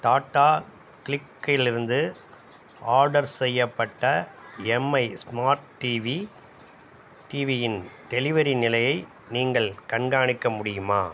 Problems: background sounds at intervals